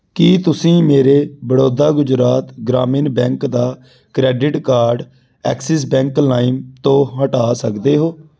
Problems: background sounds at intervals